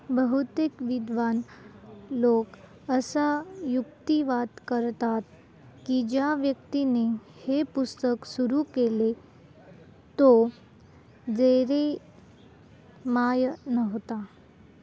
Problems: none marked